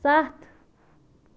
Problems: none marked